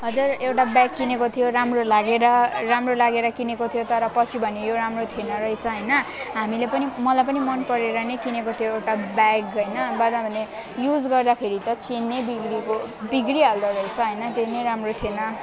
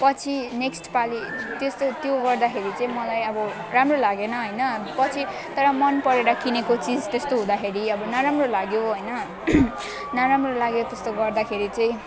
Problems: continuous background conversations